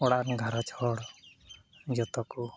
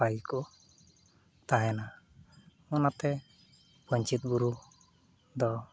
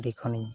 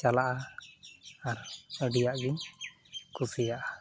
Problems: background sounds at intervals